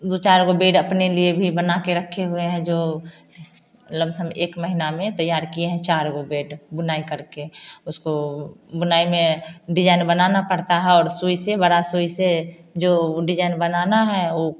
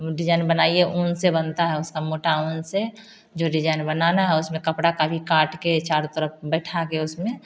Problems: constant background noise